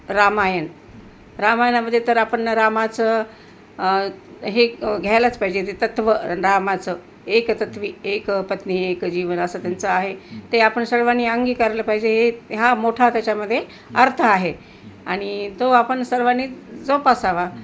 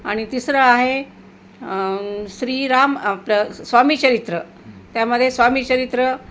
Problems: none marked